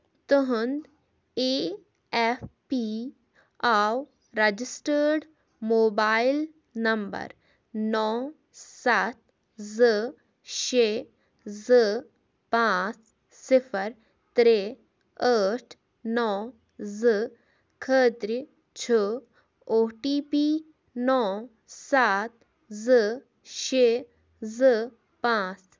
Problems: none marked